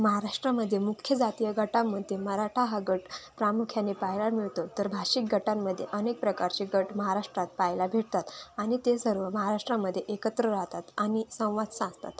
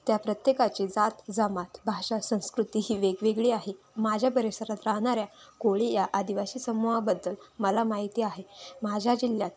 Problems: none marked